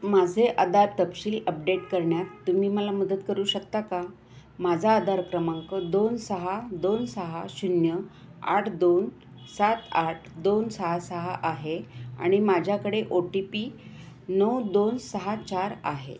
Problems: constant background noise, continuous background conversations